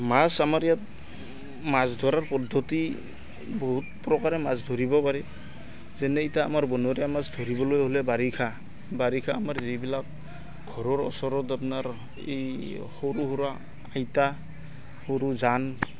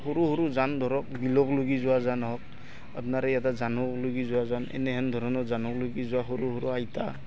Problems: constant background noise, continuous background conversations